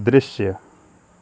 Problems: none marked